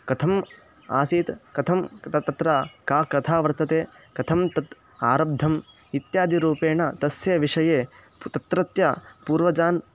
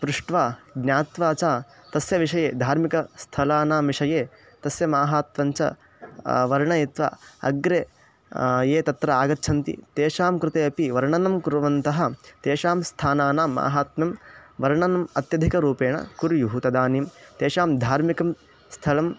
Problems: none marked